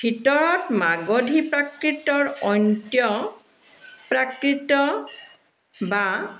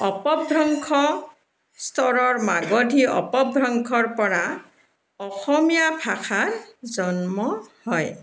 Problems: background sounds at intervals